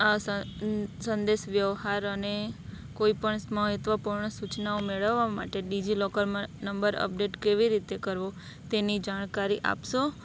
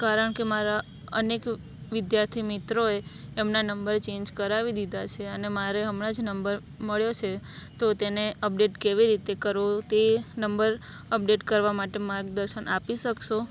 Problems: none marked